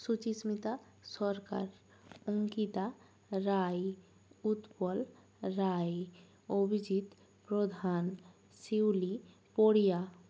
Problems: low volume